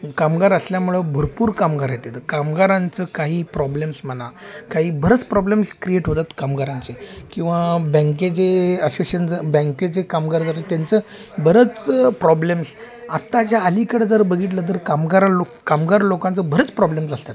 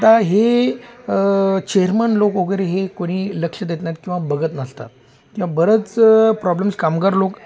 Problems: background sounds at intervals, background conversations at intervals